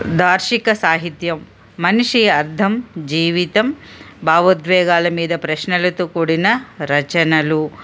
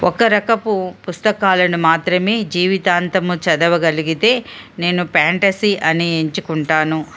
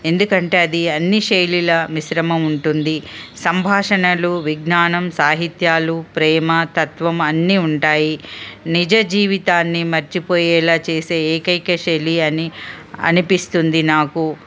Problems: none marked